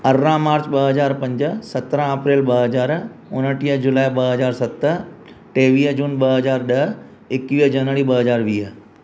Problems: constant background noise